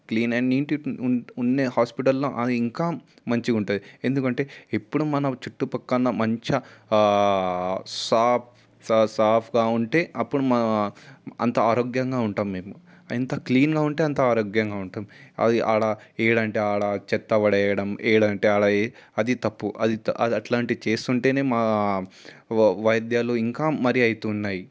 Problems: constant background noise